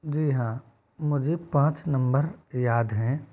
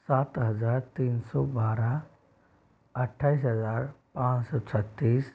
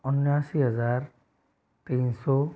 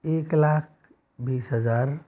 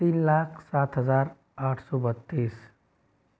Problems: none marked